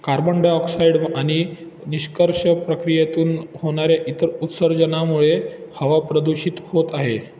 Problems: constant background noise